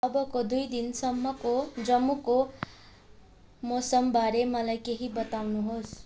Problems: none marked